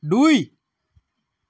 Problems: none marked